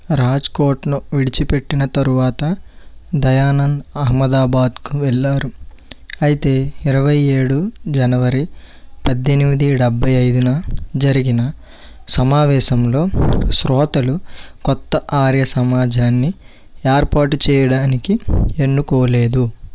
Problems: background sounds at intervals